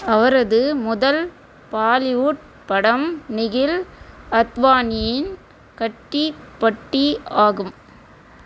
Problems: constant background noise